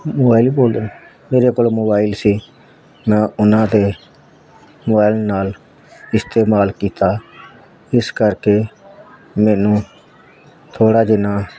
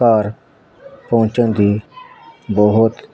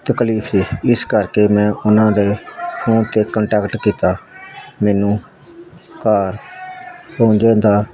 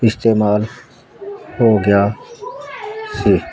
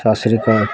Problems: constant background noise